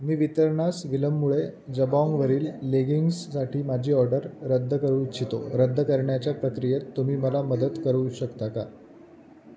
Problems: background sounds at intervals, background conversations at intervals